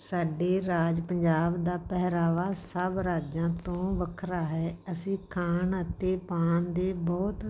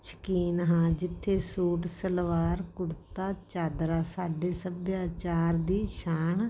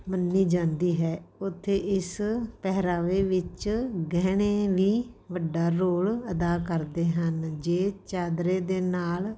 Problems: background sounds at intervals